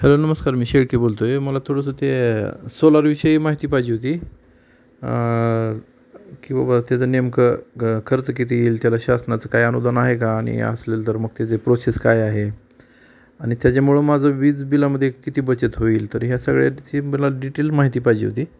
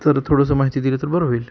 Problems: constant background noise